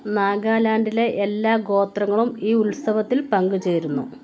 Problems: background sounds at intervals